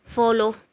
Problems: none marked